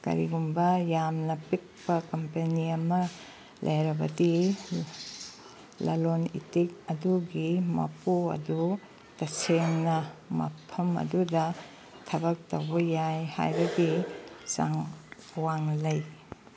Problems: none marked